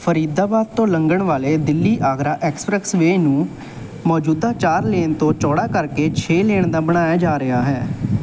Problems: background sounds at intervals